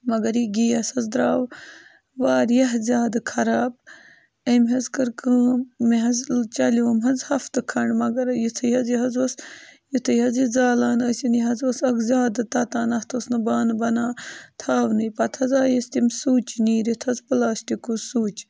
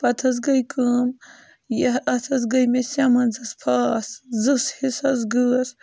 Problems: constant background noise